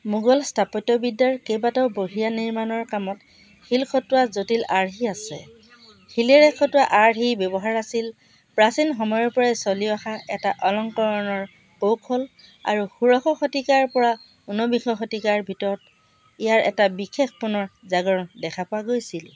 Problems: constant background noise, background conversations at intervals